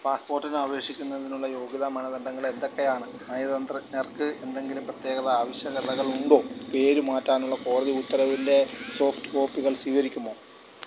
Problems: none marked